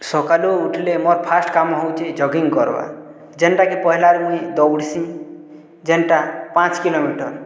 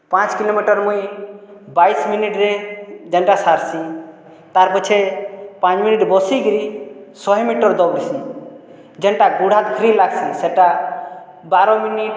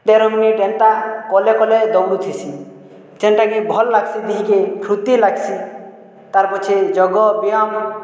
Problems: none marked